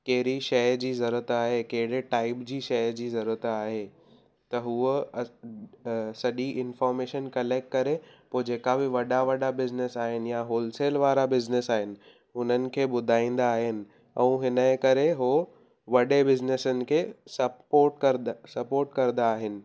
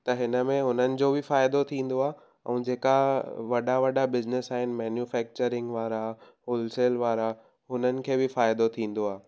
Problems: none marked